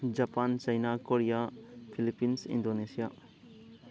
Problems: continuous background conversations